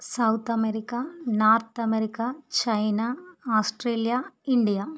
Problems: none marked